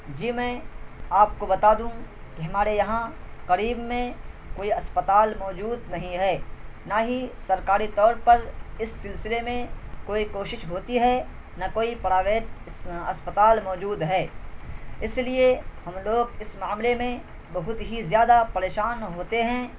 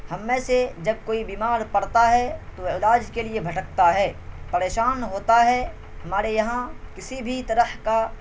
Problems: constant background noise